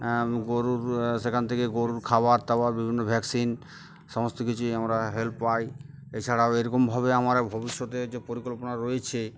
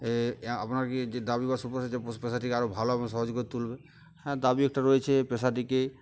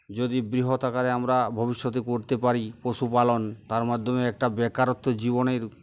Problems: background sounds at intervals, background conversations at intervals